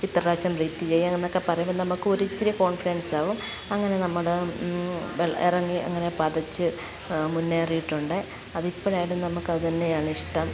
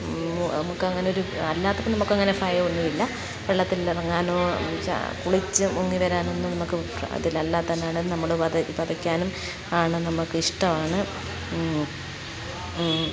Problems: constant background noise, background conversations at intervals, low volume